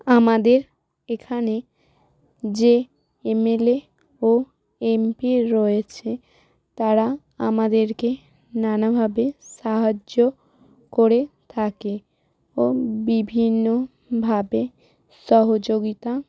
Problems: background sounds at intervals